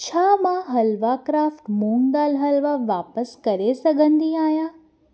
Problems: none marked